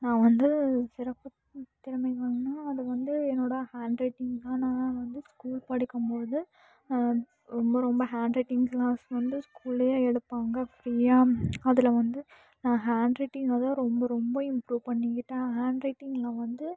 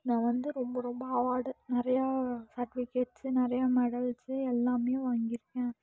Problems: low volume